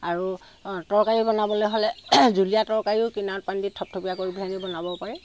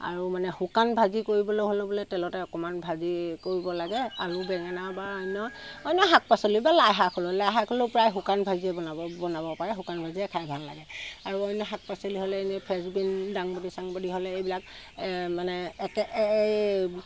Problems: constant background noise